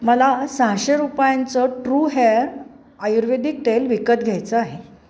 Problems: background sounds at intervals